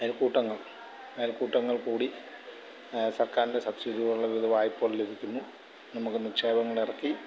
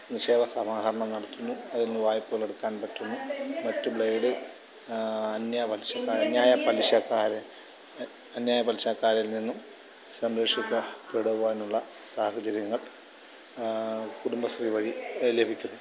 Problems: none marked